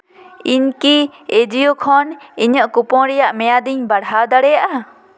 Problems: echo